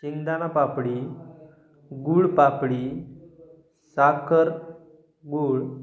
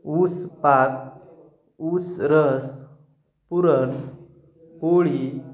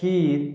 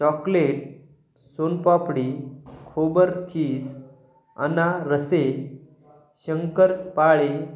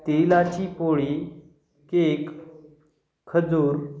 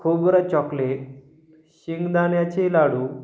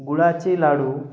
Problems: none marked